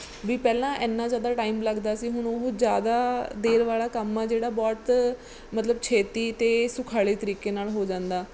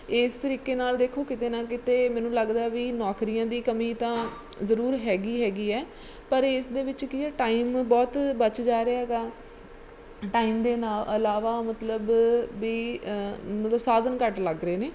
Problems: background sounds at intervals